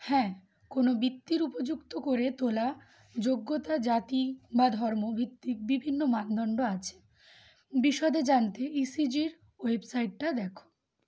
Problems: none marked